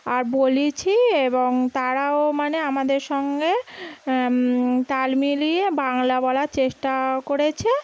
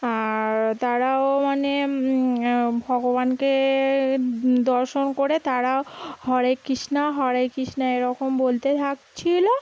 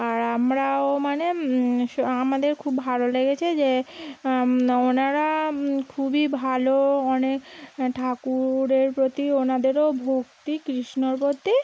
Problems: background sounds at intervals